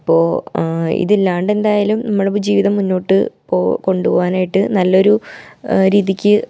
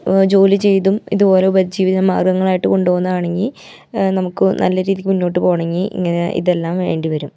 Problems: none marked